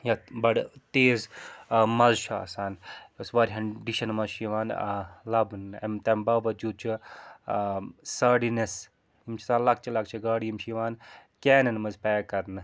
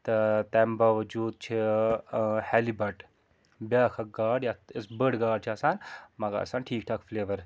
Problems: constant background noise